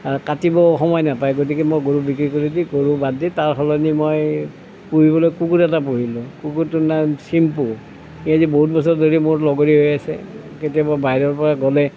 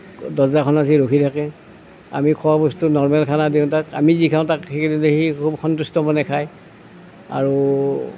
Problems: none marked